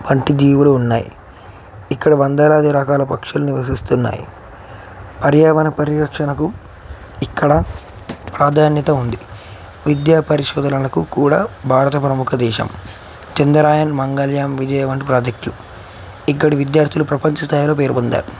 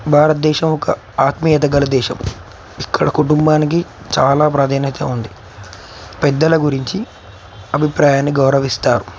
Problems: none marked